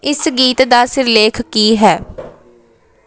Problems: background sounds at intervals, background conversations at intervals